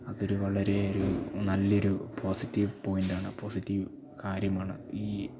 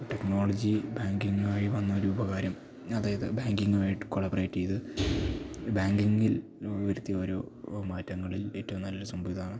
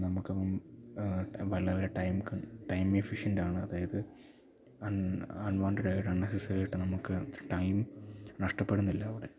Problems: none marked